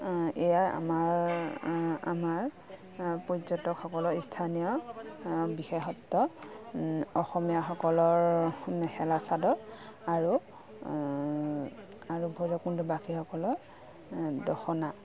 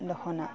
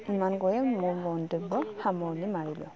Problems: none marked